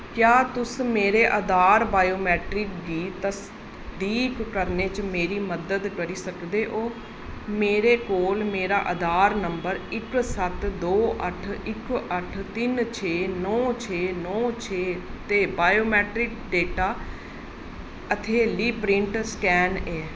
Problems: constant background noise, echo